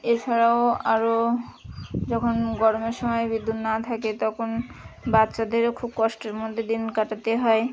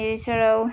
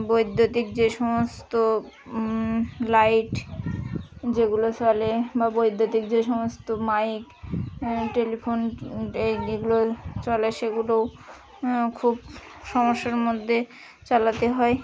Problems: constant background noise, continuous background conversations